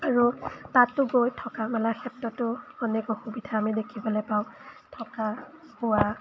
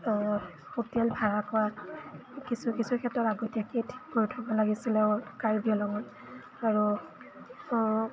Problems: background sounds at intervals